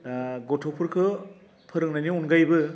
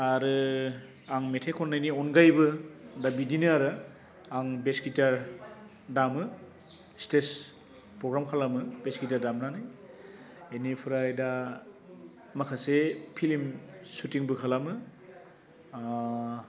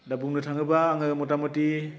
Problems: constant background noise